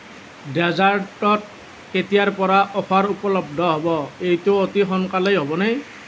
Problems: none marked